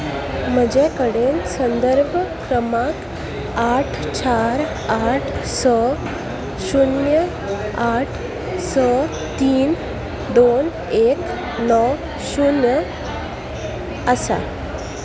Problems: constant background noise